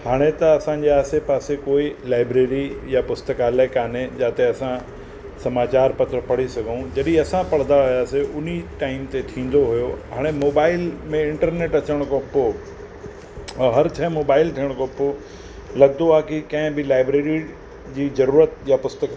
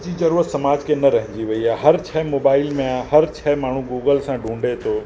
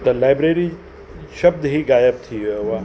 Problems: constant background noise